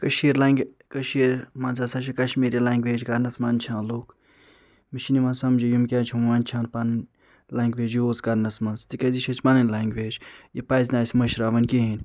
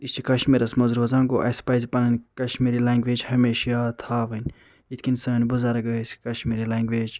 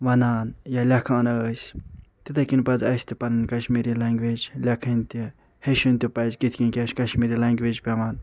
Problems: none marked